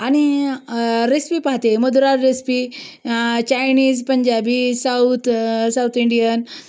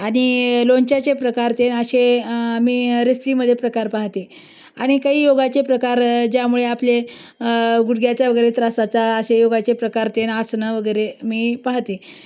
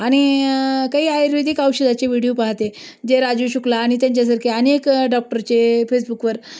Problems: constant background noise, background conversations at intervals